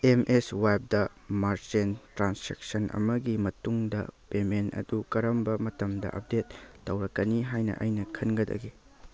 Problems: background sounds at intervals